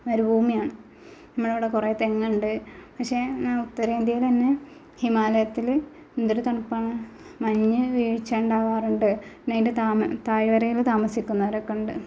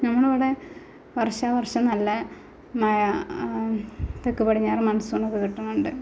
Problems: none marked